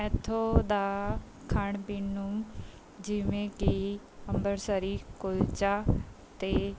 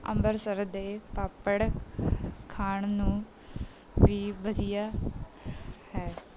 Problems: none marked